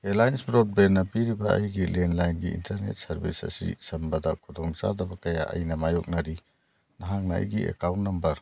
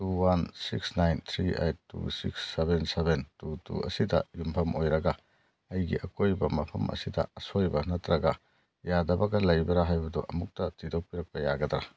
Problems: none marked